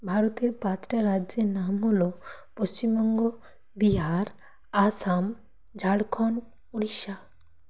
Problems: none marked